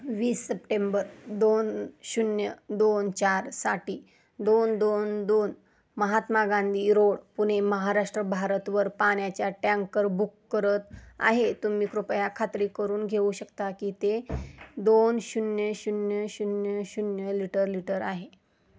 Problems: constant background noise, low volume